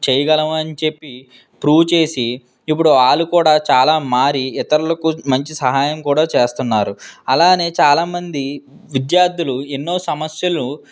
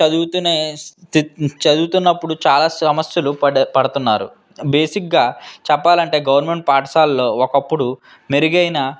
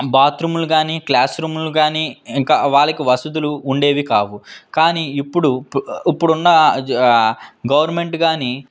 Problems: background sounds at intervals